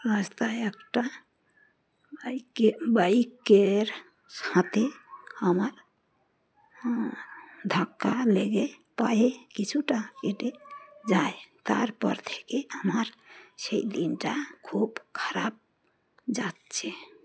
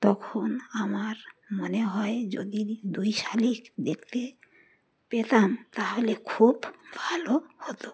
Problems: constant background noise, background conversations at intervals